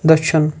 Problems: constant background noise